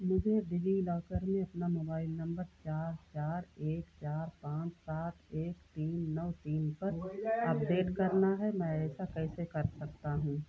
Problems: constant background noise, low volume